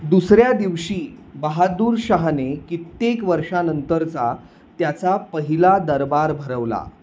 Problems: constant background noise